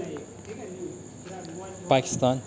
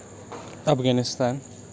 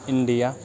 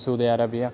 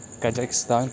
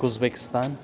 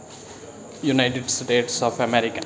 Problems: constant background noise, continuous background conversations